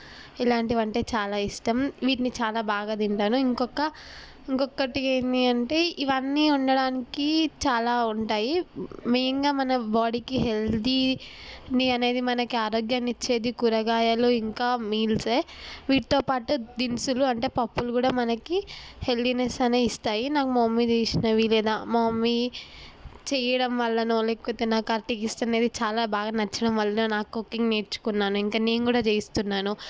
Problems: none marked